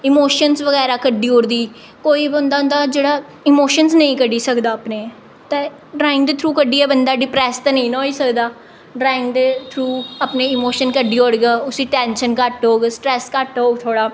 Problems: none marked